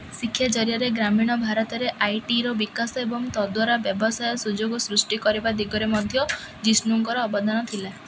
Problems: none marked